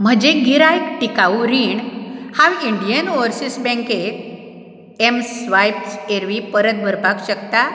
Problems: background sounds at intervals